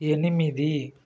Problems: constant background noise